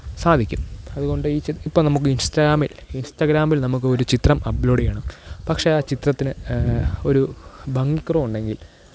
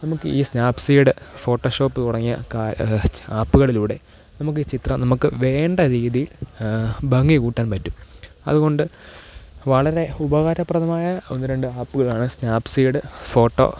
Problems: constant background noise